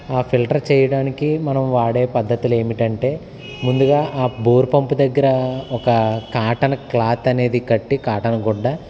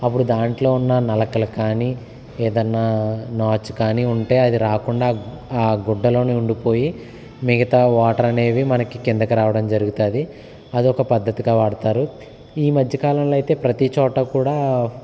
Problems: none marked